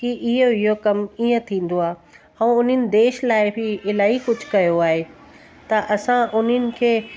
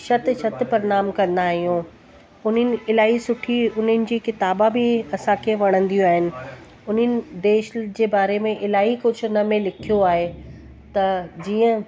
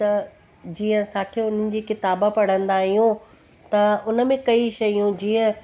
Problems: constant background noise